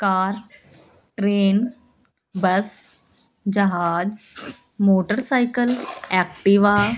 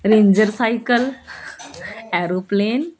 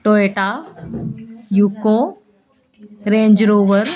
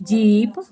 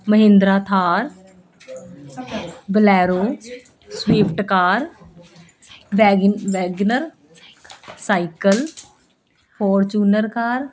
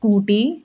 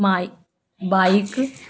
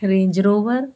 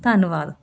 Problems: constant background noise, continuous background conversations